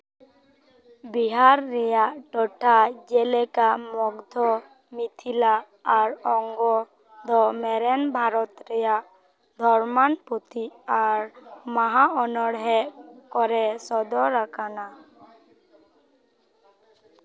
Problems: background sounds at intervals